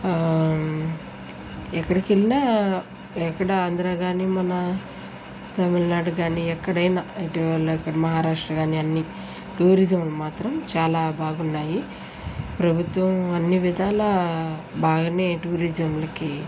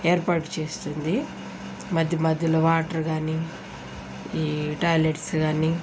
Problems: none marked